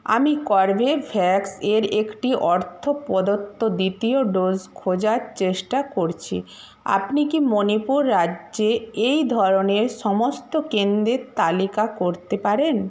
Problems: constant background noise